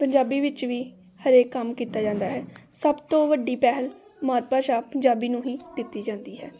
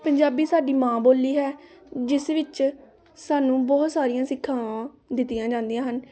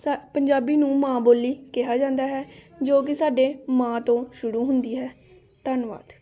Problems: constant background noise, continuous background conversations